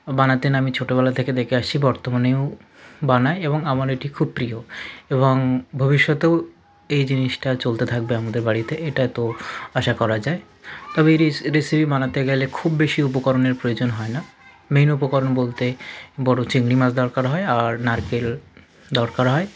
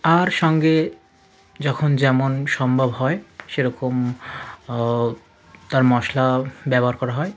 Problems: constant background noise, continuous background conversations